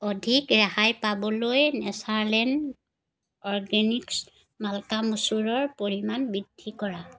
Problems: background conversations at intervals